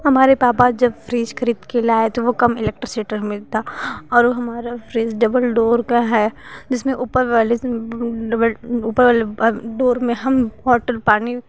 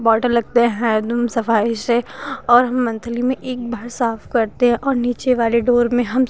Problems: constant background noise